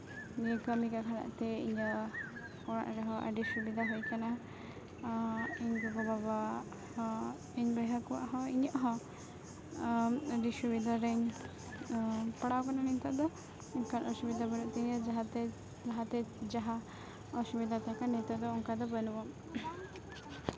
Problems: constant background noise, continuous background conversations